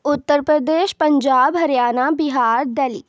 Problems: none marked